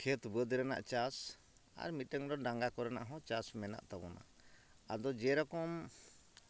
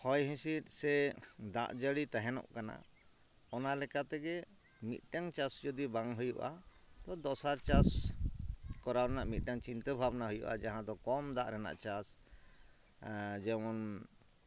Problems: background sounds at intervals